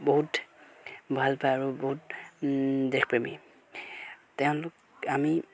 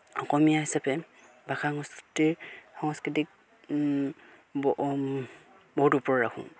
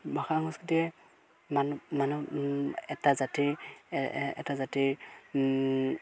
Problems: background sounds at intervals